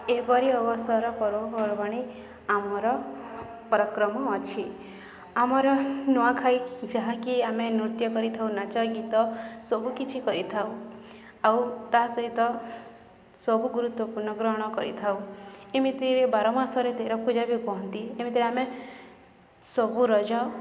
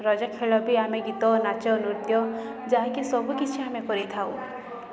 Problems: none marked